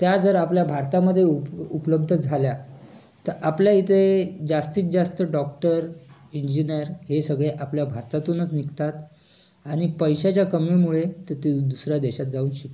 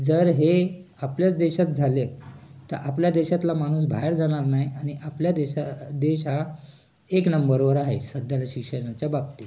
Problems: constant background noise, continuous background conversations